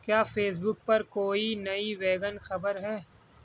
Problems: background sounds at intervals